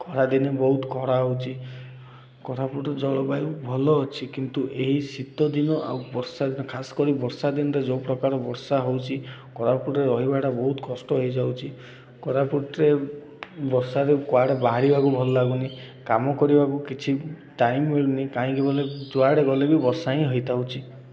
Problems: none marked